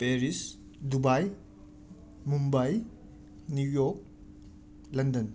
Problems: constant background noise